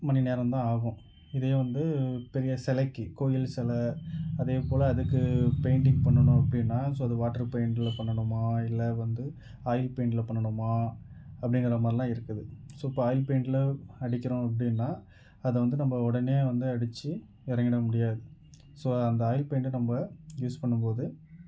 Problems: none marked